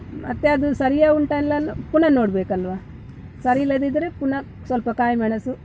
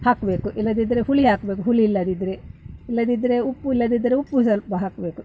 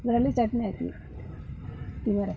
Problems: background conversations at intervals